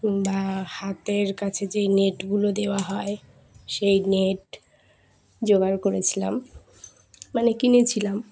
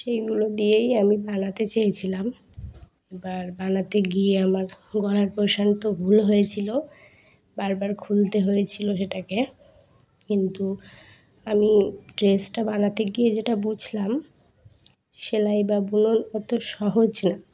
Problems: background sounds at intervals, background conversations at intervals